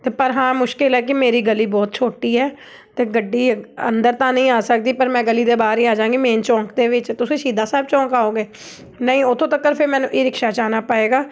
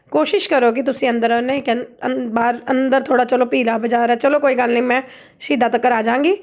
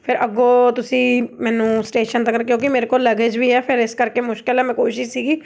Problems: none marked